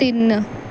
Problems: none marked